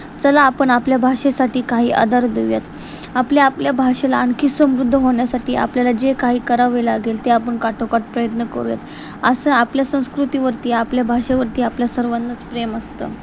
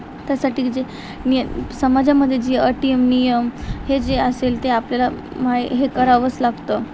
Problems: constant background noise